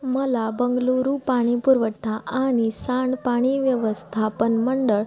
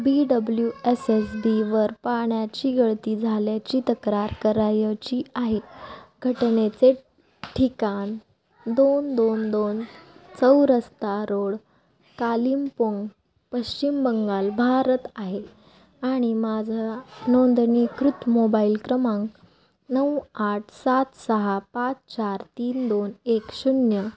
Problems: none marked